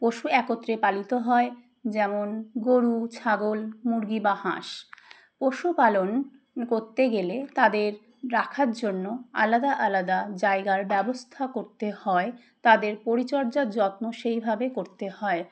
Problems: none marked